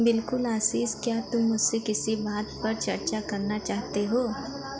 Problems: none marked